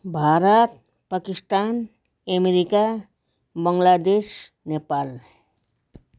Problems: none marked